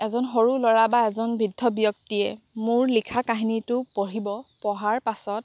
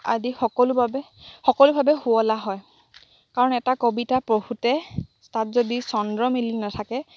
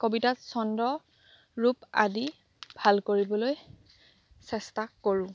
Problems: background sounds at intervals